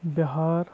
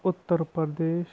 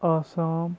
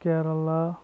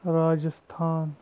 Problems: constant background noise, low volume